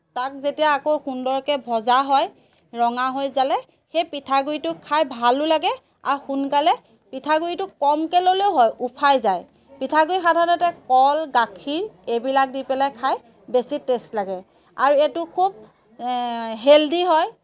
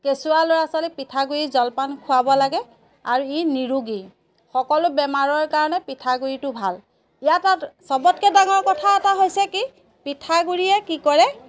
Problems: background sounds at intervals